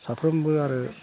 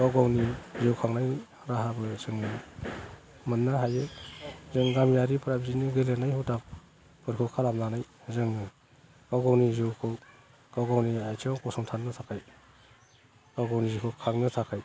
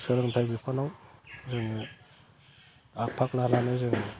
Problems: low volume